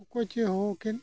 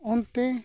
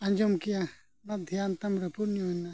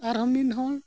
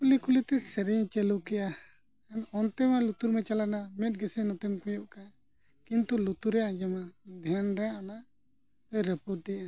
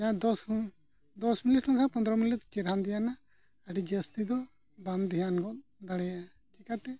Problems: background sounds at intervals, low volume